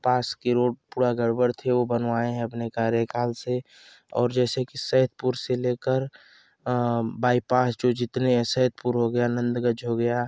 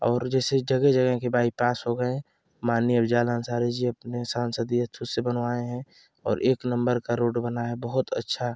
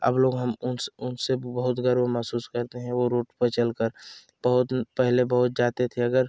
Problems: none marked